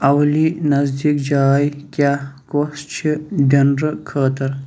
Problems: none marked